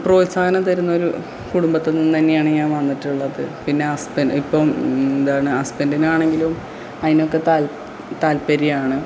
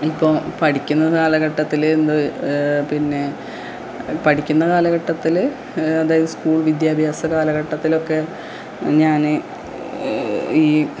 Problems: low volume